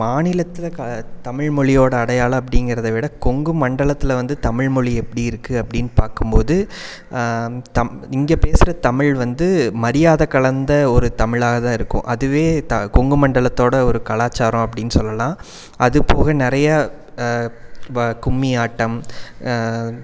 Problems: background sounds at intervals